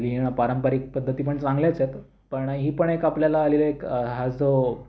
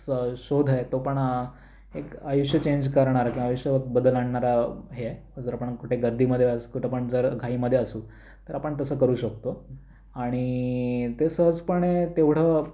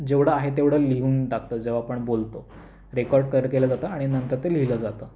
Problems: constant background noise